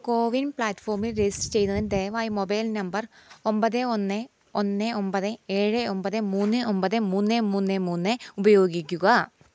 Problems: none marked